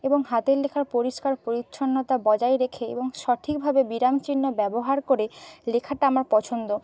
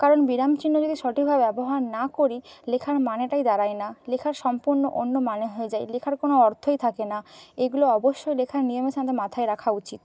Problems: none marked